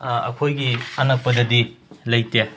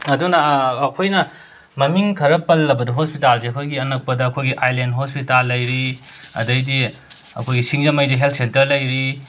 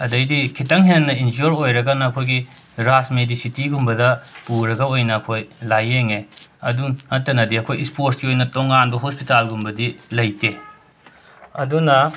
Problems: constant background noise